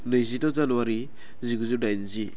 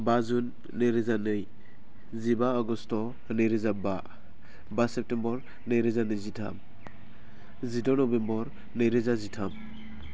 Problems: low volume